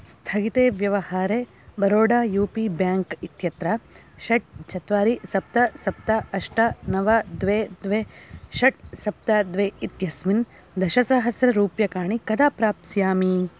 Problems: background sounds at intervals